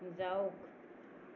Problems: background sounds at intervals